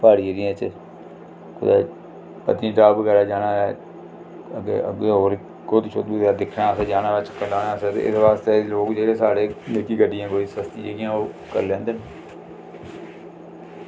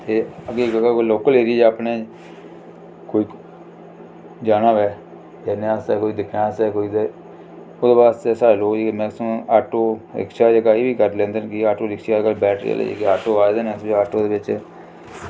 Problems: low volume